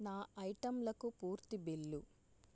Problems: low volume